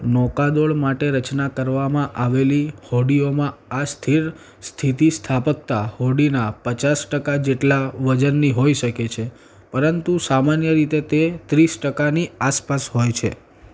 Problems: none marked